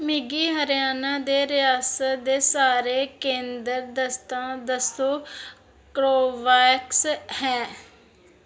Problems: none marked